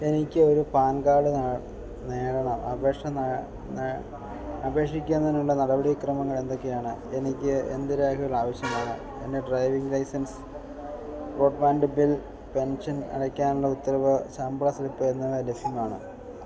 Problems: constant background noise